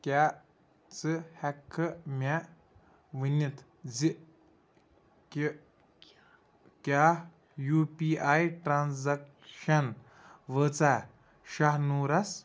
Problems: background conversations at intervals